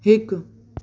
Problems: constant background noise, echo